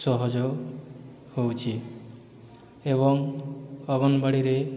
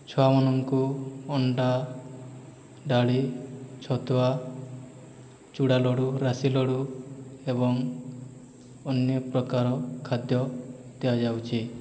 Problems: background sounds at intervals, background conversations at intervals